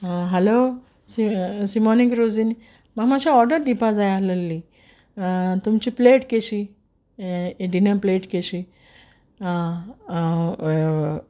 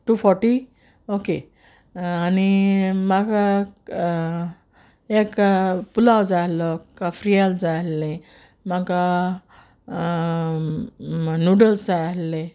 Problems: constant background noise